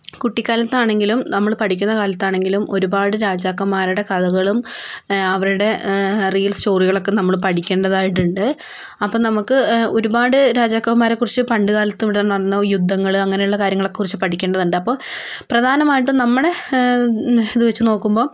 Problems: background sounds at intervals, low volume